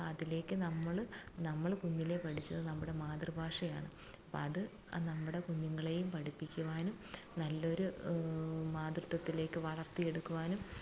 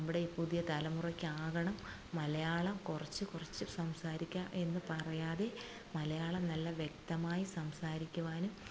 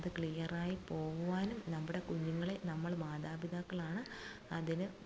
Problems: constant background noise, low volume